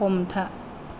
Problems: low volume